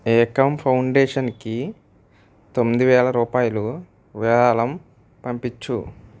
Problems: none marked